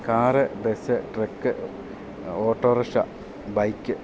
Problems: constant background noise